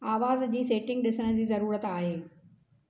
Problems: constant background noise